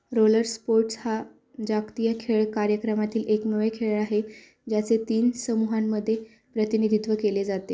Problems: constant background noise